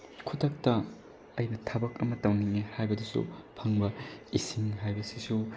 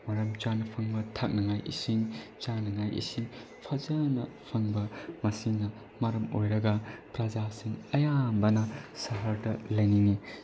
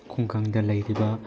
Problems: background sounds at intervals, low volume